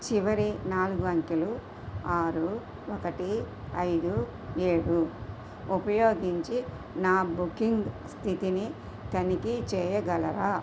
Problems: none marked